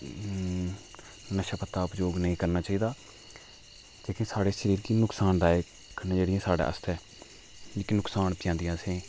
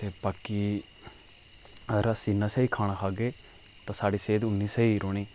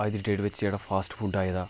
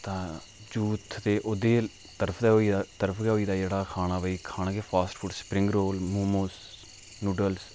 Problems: background sounds at intervals